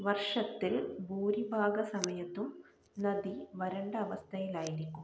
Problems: low volume